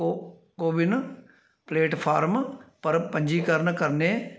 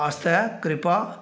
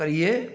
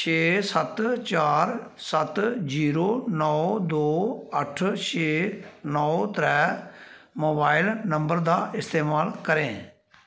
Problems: constant background noise